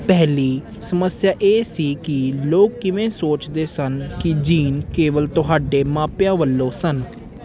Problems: constant background noise